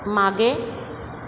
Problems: constant background noise